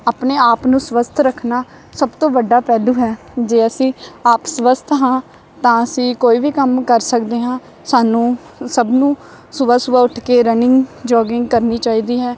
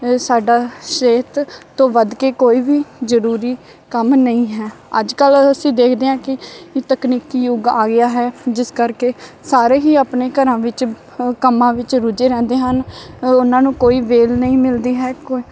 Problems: none marked